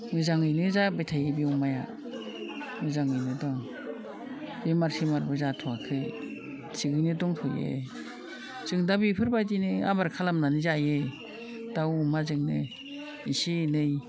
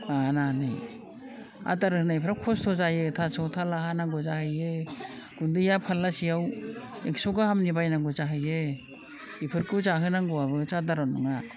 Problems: constant background noise